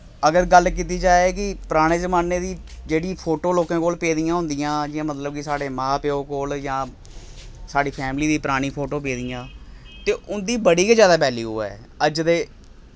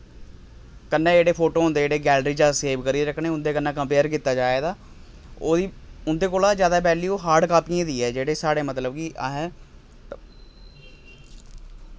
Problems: none marked